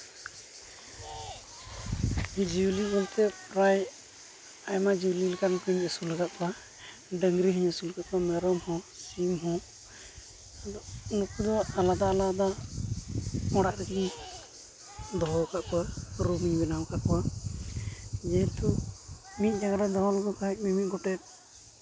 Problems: constant background noise, background conversations at intervals